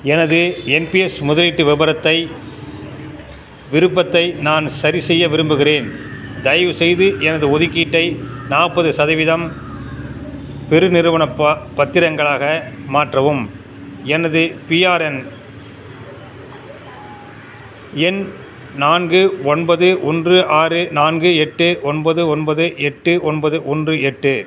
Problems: constant background noise